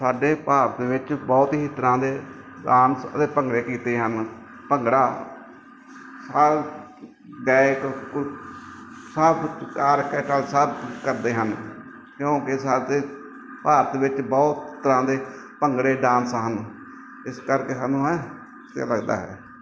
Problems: background sounds at intervals